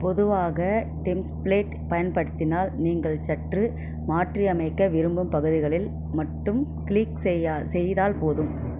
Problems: constant background noise